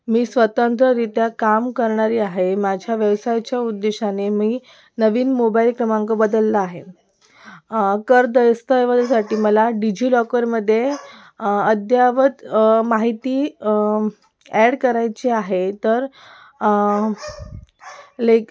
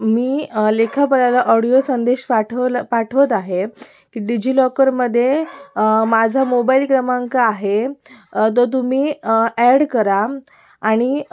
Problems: background sounds at intervals, continuous background conversations